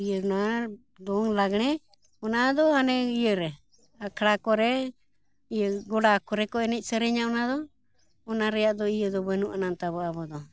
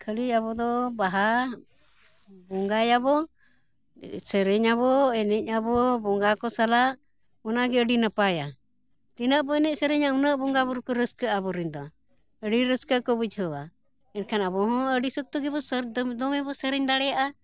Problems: background sounds at intervals